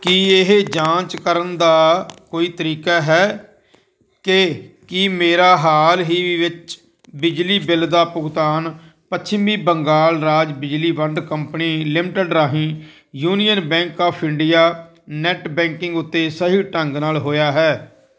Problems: none marked